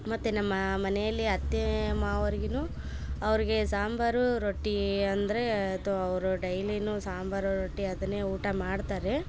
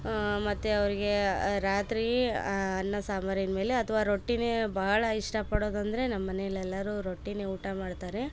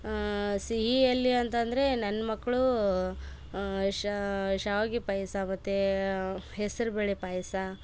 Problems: background sounds at intervals